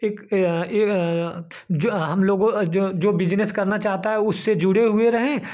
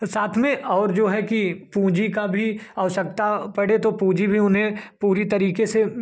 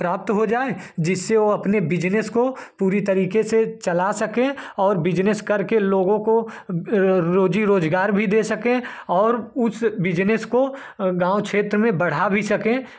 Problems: constant background noise